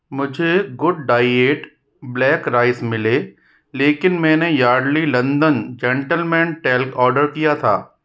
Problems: none marked